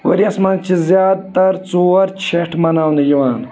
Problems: constant background noise, continuous background conversations